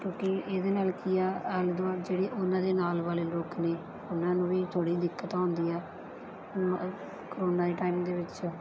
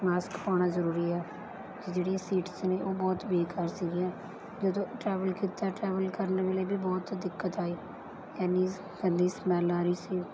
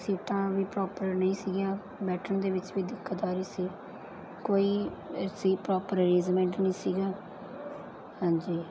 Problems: background sounds at intervals